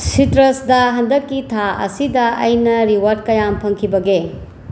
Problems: constant background noise